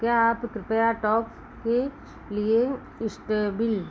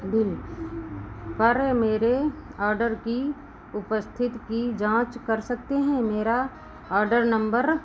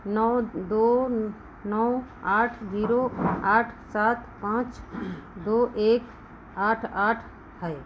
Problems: none marked